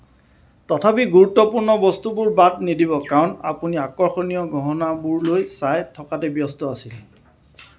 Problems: none marked